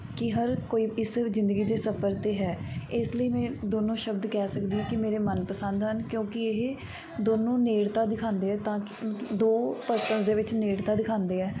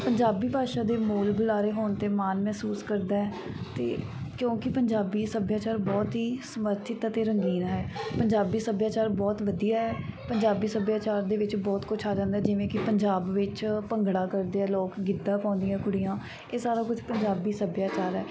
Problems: background sounds at intervals, background conversations at intervals